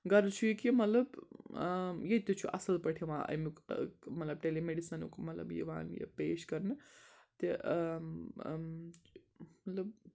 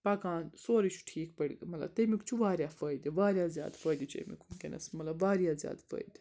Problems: background sounds at intervals